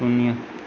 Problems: background sounds at intervals